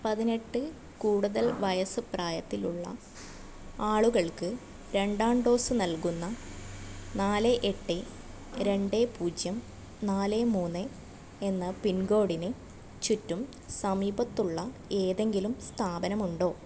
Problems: none marked